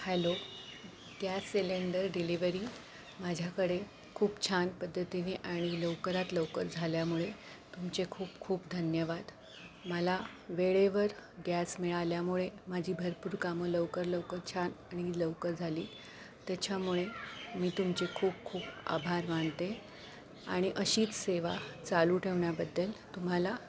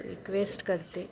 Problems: constant background noise